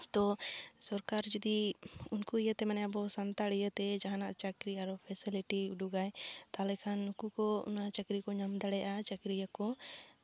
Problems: constant background noise